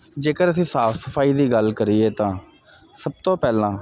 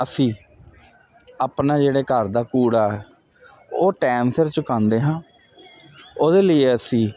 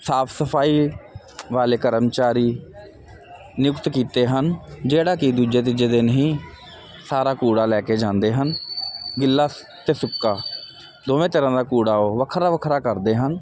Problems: none marked